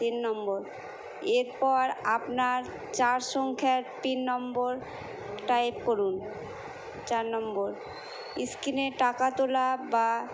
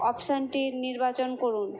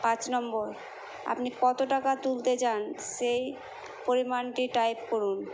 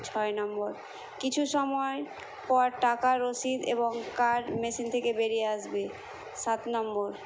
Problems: constant background noise